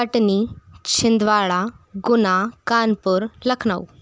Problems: constant background noise